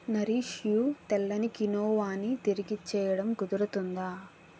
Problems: none marked